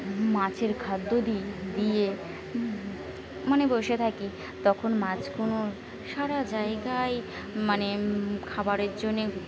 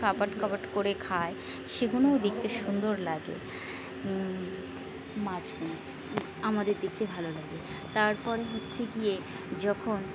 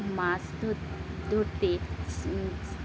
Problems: constant background noise, continuous background conversations